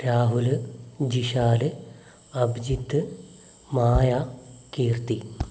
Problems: background sounds at intervals, low volume